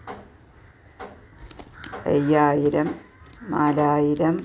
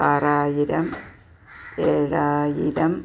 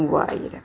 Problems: background sounds at intervals